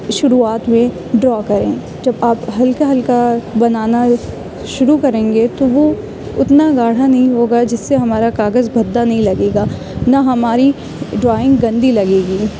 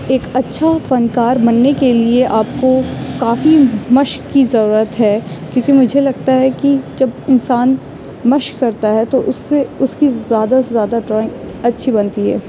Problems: background sounds at intervals